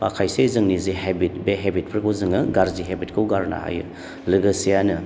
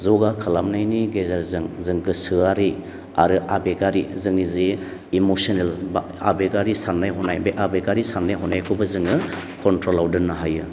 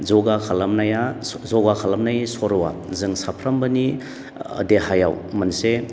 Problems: none marked